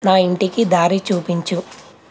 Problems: constant background noise